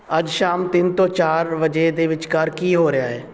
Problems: background sounds at intervals